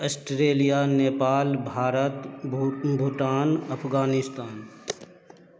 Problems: background sounds at intervals, continuous background conversations